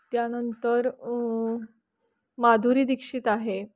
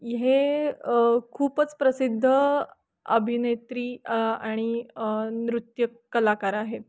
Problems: constant background noise, background conversations at intervals